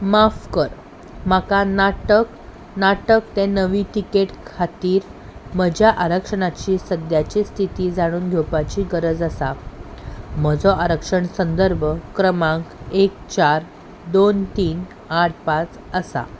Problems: background sounds at intervals